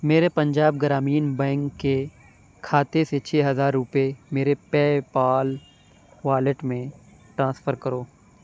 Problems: constant background noise